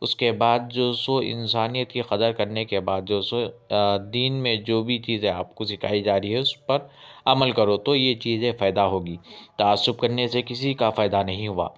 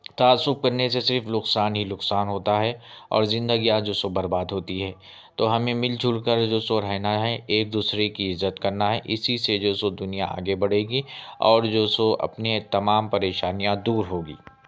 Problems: none marked